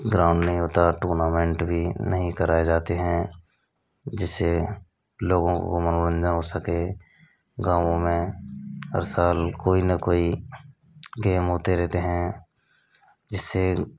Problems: constant background noise